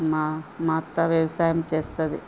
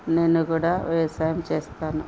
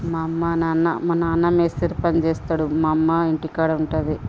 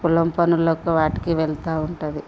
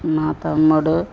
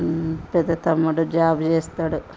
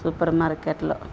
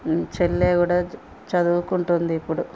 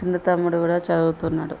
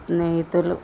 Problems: constant background noise, background conversations at intervals